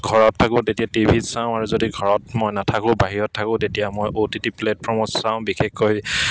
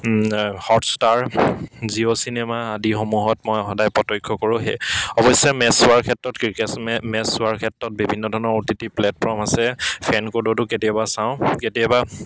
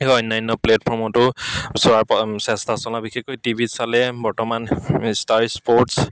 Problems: background sounds at intervals, background conversations at intervals